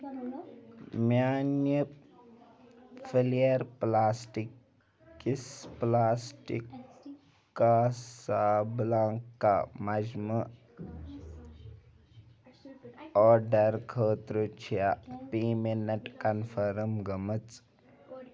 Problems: background sounds at intervals, background conversations at intervals